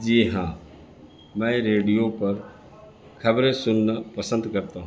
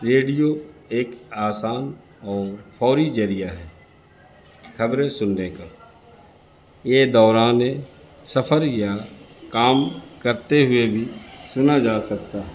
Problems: constant background noise